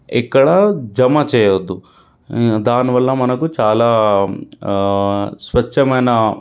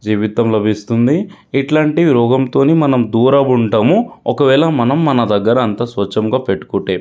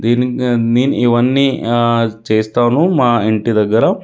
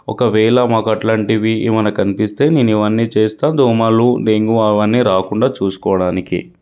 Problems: none marked